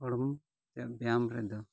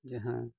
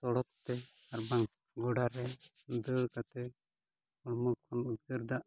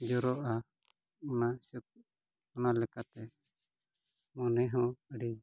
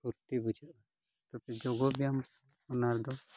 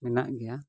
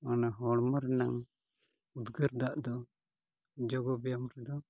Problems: none marked